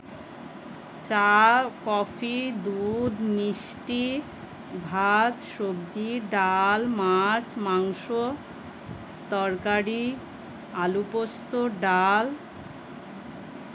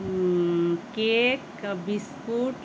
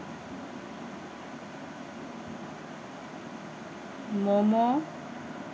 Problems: none marked